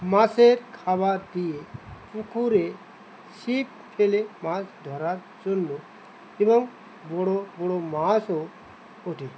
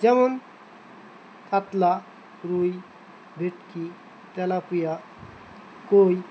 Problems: constant background noise